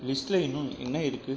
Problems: background sounds at intervals